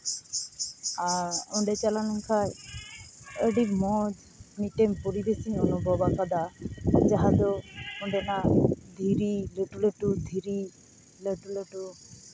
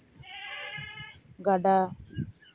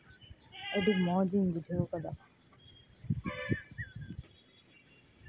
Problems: background sounds at intervals